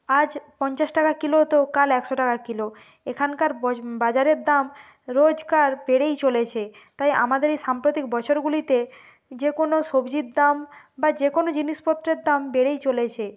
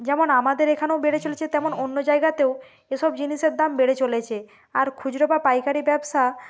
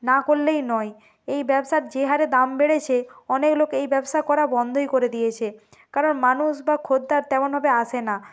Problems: none marked